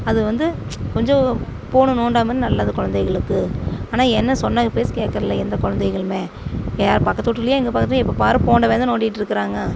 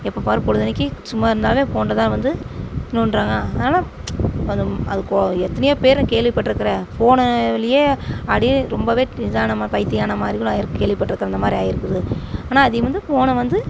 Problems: constant background noise